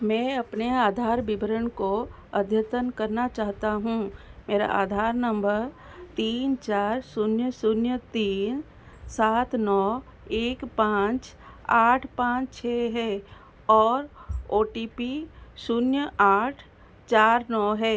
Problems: none marked